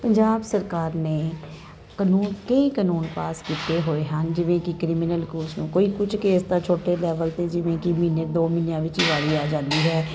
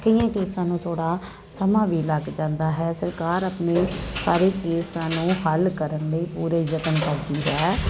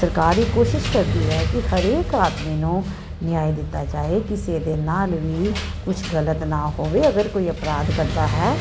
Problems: constant background noise